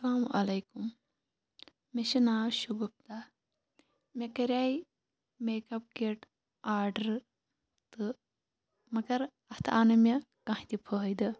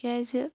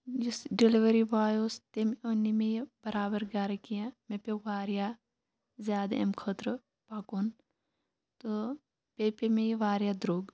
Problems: none marked